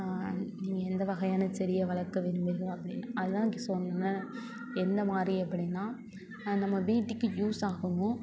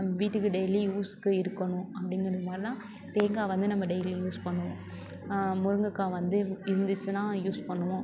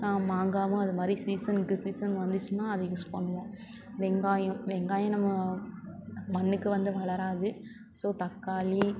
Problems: continuous background conversations